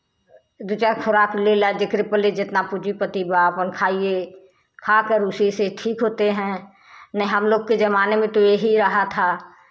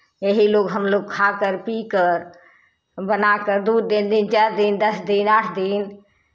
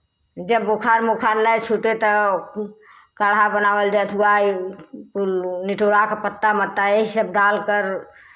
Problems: none marked